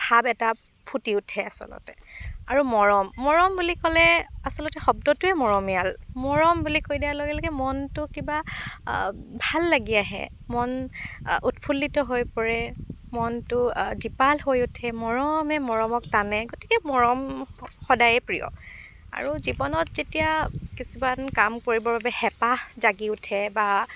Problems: none marked